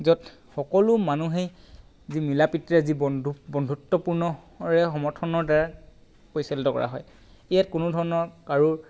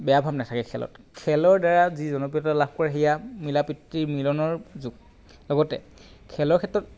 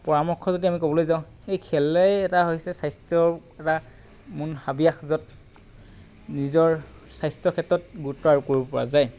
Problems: constant background noise